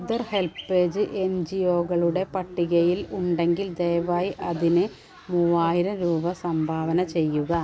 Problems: background sounds at intervals